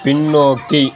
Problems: none marked